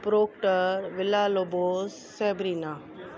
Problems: constant background noise, echo